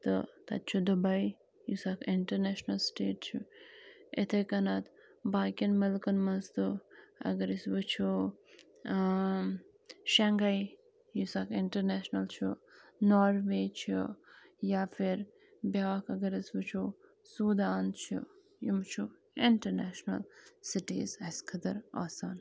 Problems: constant background noise